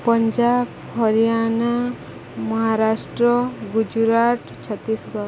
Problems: constant background noise